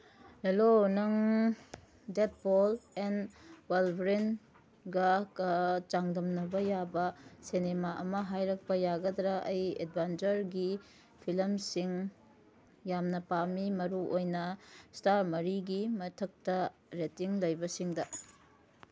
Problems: none marked